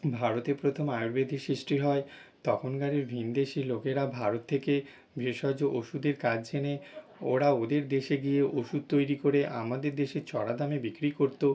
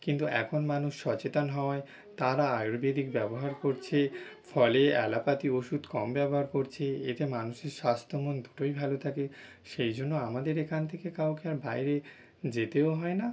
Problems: background sounds at intervals